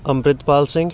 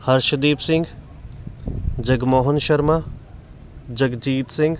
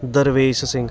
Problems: continuous background conversations